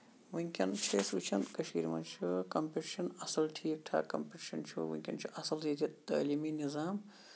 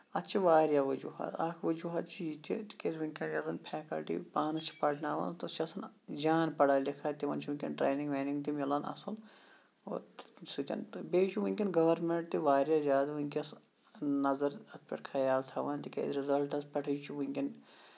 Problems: background sounds at intervals